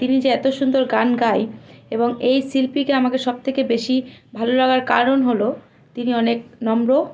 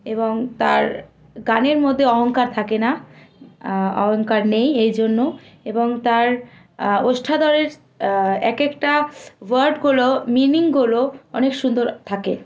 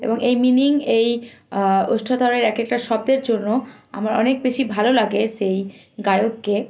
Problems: constant background noise, background conversations at intervals